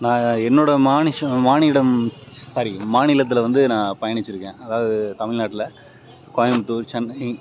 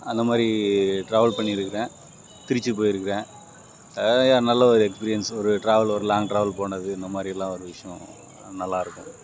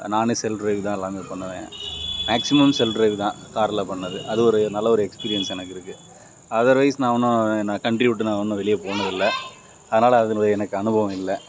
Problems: background sounds at intervals